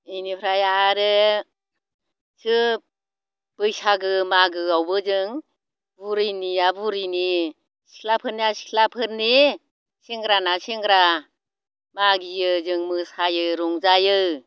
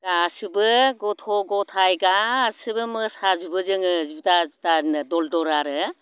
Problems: none marked